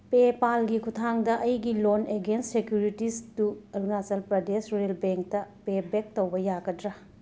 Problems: background sounds at intervals